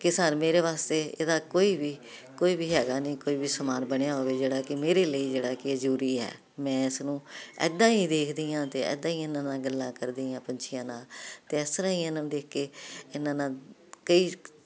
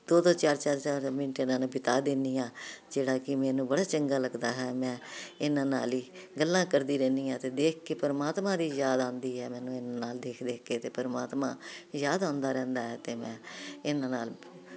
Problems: none marked